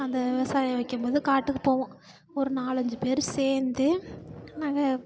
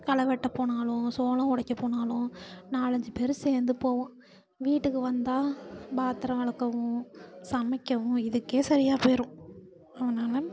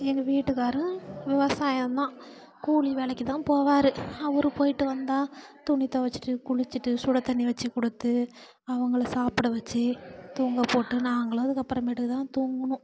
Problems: constant background noise